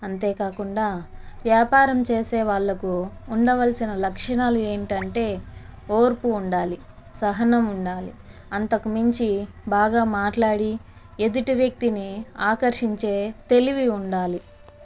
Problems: constant background noise